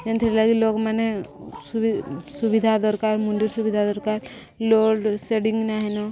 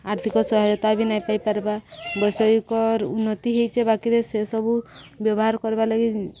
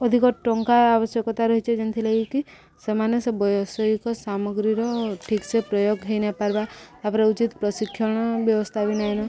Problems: continuous background conversations